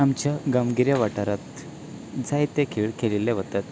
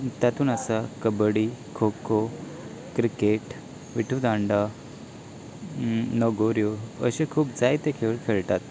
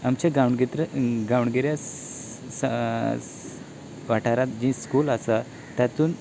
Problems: none marked